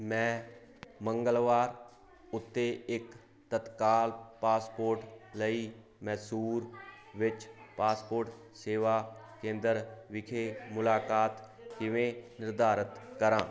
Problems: constant background noise